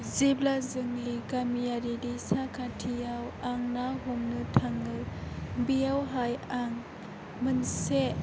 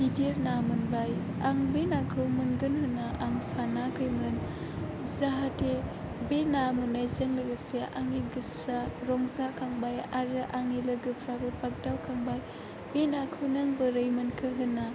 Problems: constant background noise